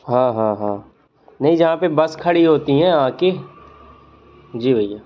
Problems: none marked